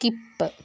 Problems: none marked